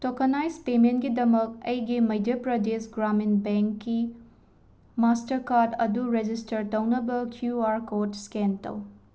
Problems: none marked